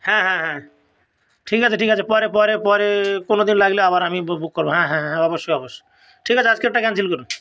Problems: background sounds at intervals